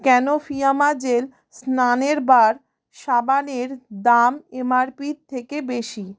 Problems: none marked